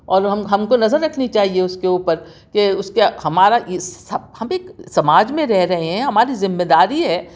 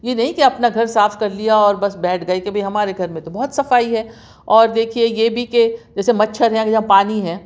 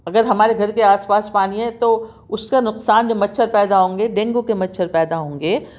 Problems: none marked